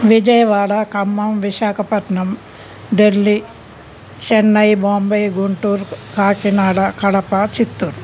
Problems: constant background noise